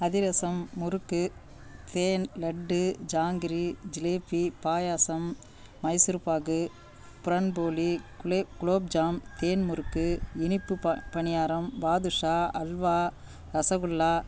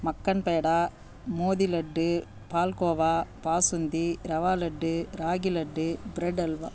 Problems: none marked